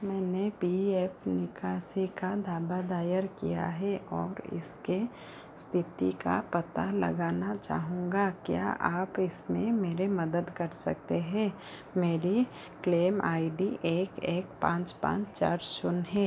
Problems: constant background noise